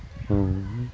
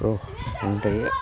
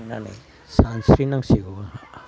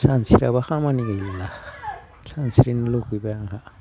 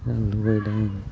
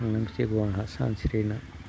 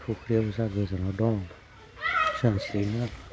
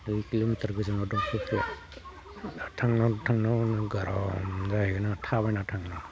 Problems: none marked